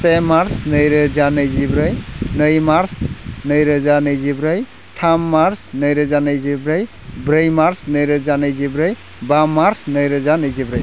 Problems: constant background noise